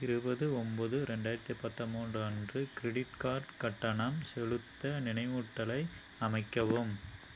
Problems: low volume